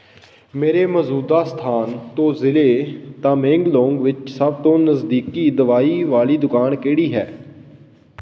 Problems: background sounds at intervals